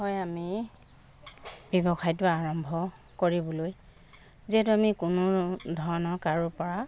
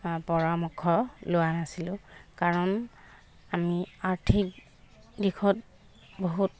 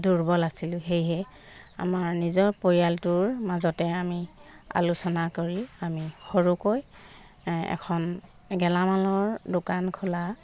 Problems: background sounds at intervals